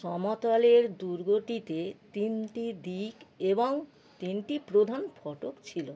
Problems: constant background noise